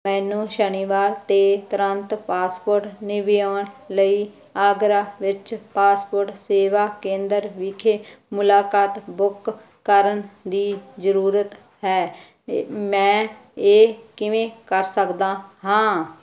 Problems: background sounds at intervals